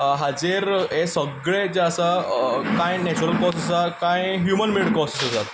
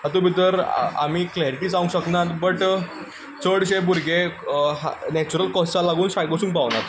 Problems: constant background noise